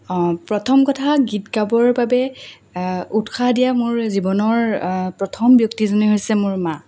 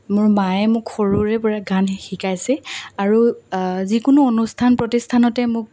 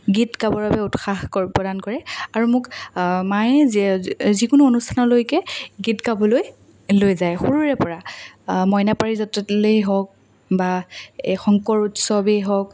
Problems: none marked